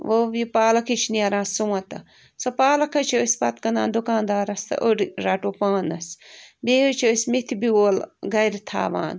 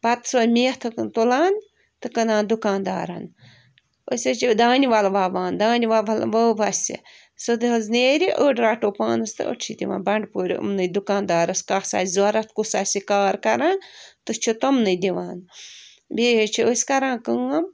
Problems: background sounds at intervals